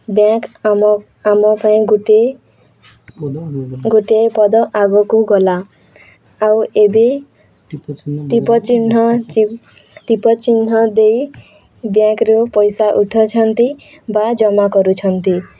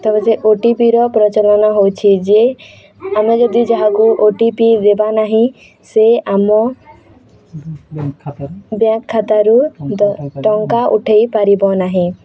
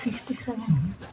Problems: background sounds at intervals, continuous background conversations